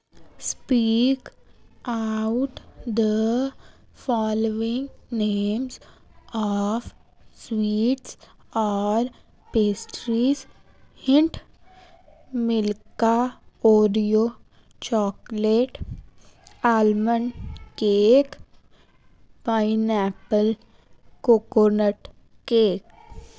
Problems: background sounds at intervals